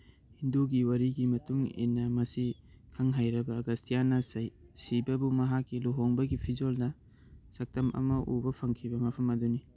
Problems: none marked